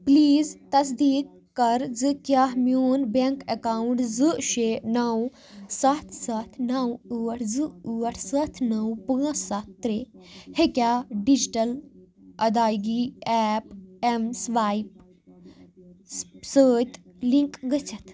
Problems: none marked